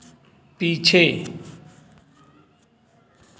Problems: constant background noise